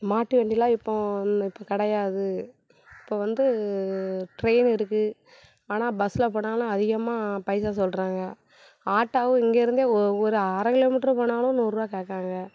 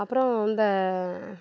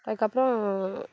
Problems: none marked